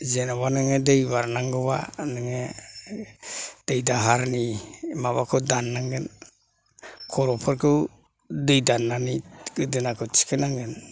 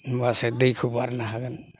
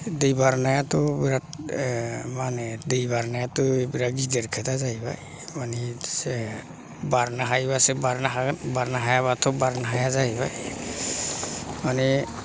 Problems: low volume